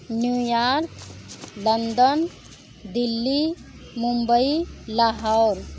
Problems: constant background noise